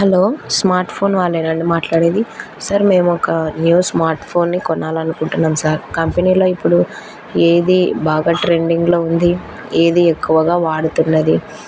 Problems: constant background noise